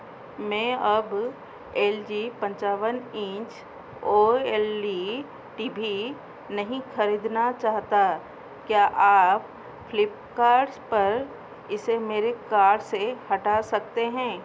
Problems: constant background noise